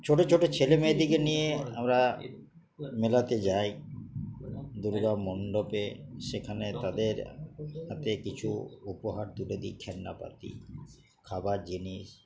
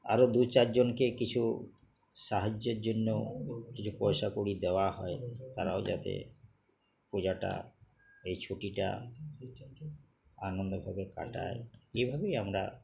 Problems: none marked